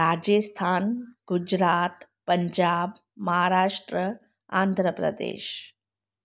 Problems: none marked